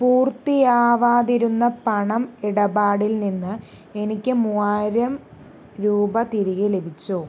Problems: none marked